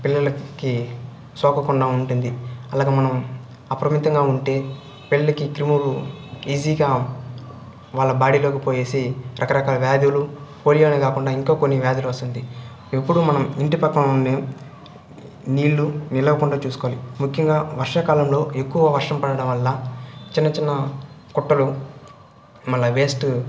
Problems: none marked